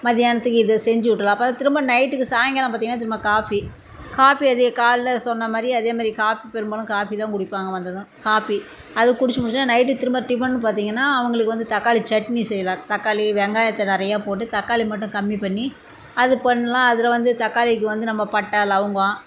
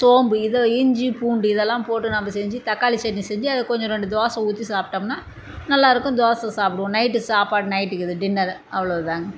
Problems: constant background noise